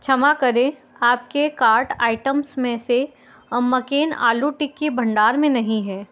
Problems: background sounds at intervals